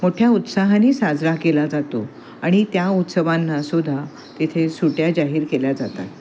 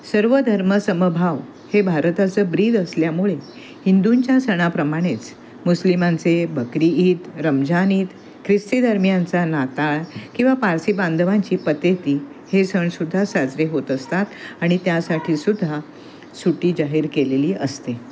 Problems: constant background noise, continuous background conversations